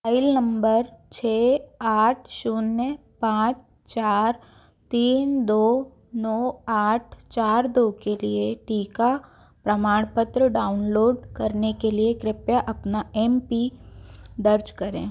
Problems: background sounds at intervals